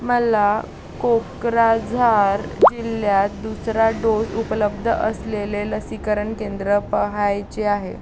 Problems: constant background noise